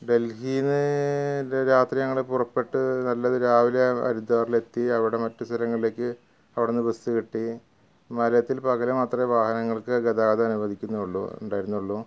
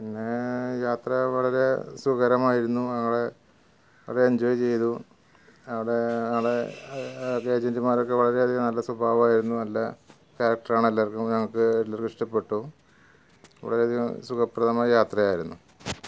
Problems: background sounds at intervals